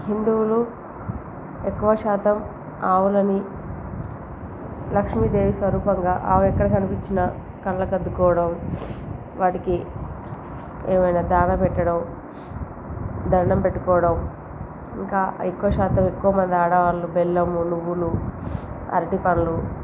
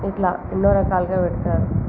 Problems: constant background noise